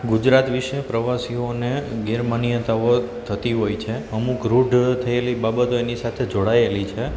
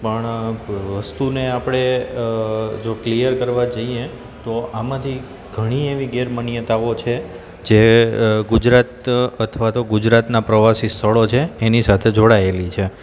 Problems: constant background noise